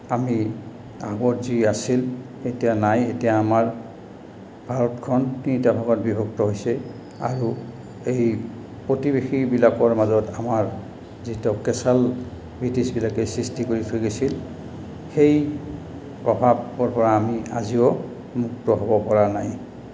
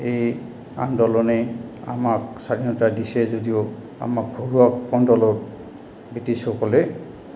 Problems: background sounds at intervals